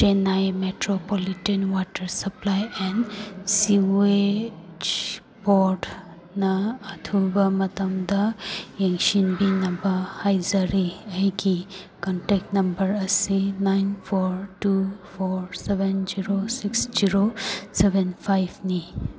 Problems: background conversations at intervals